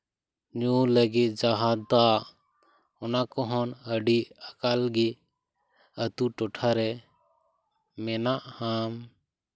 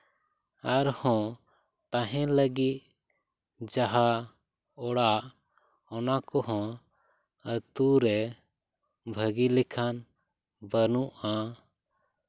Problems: none marked